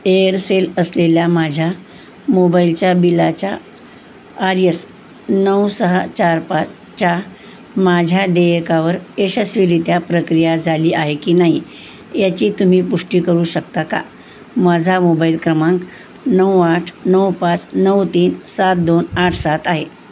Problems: constant background noise